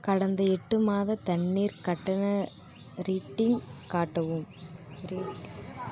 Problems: constant background noise